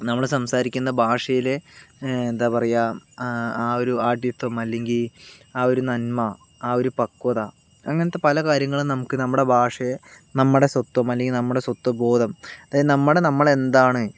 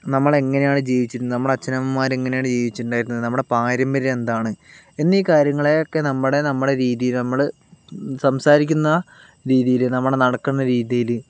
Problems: none marked